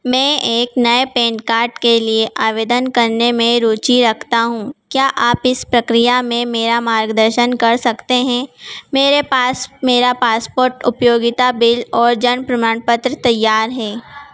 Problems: background sounds at intervals